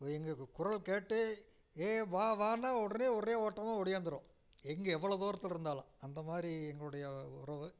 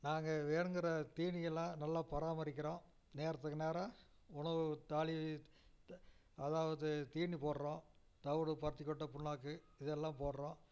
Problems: low volume